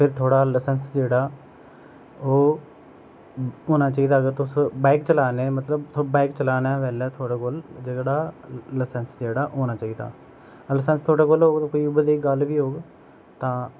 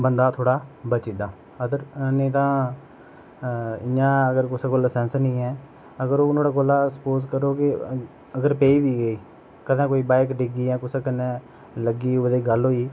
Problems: none marked